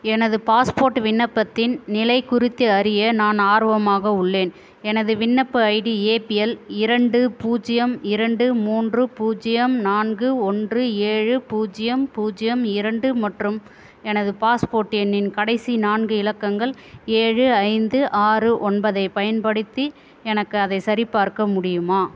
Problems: constant background noise